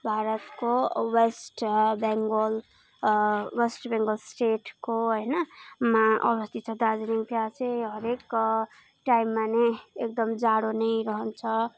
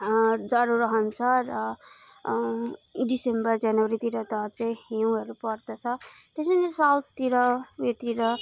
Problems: none marked